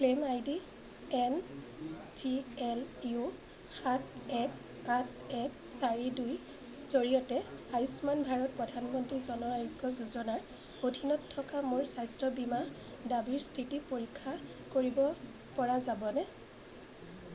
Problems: constant background noise, background conversations at intervals